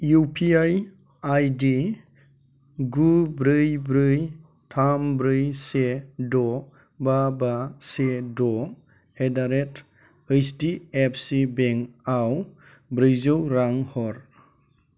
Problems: constant background noise